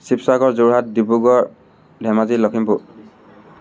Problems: none marked